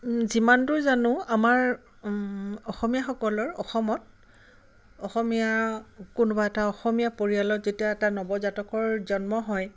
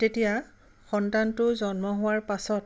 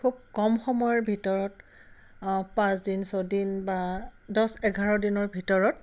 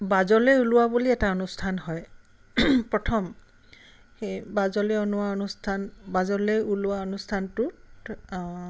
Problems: none marked